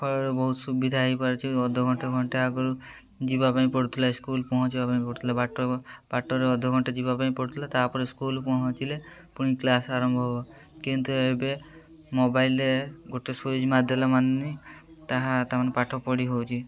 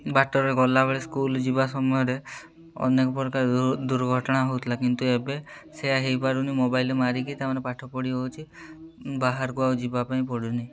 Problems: constant background noise, continuous background conversations